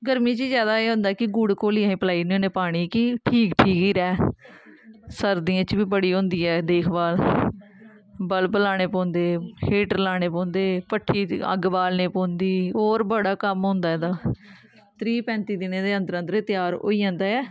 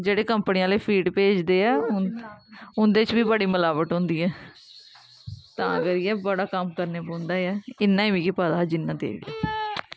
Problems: none marked